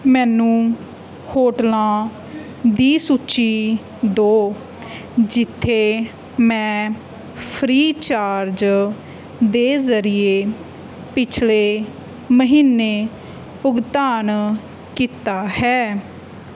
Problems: background conversations at intervals